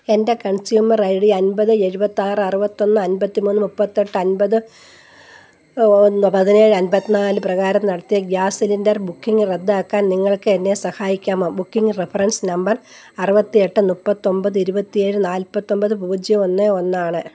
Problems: background sounds at intervals